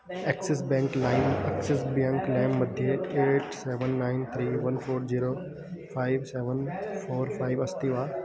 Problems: background sounds at intervals